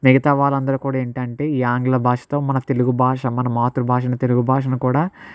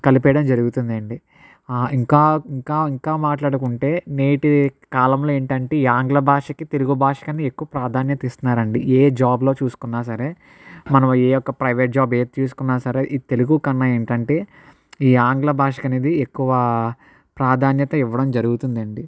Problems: none marked